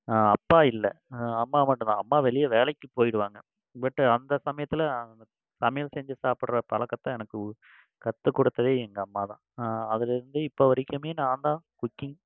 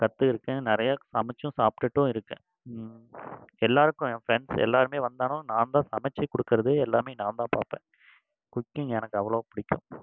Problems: background sounds at intervals